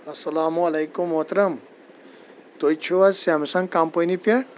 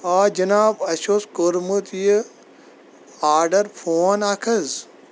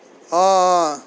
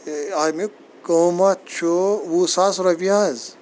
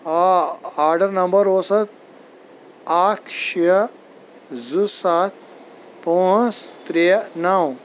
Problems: constant background noise